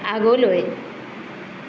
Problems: constant background noise